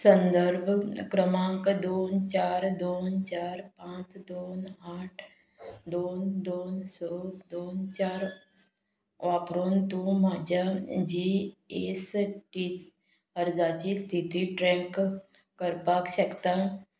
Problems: background sounds at intervals